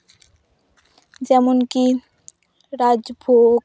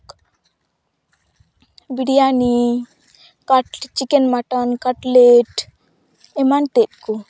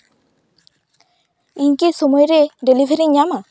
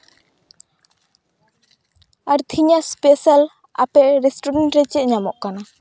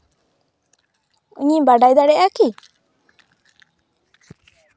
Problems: background sounds at intervals